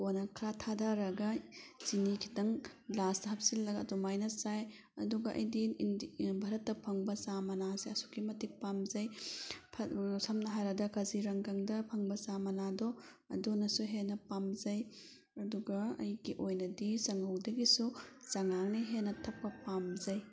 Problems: background sounds at intervals